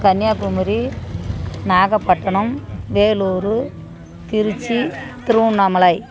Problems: background conversations at intervals